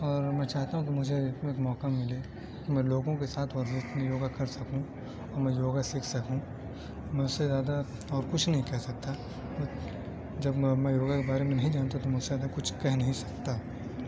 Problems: constant background noise, low volume